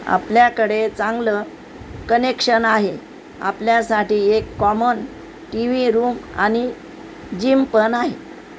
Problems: constant background noise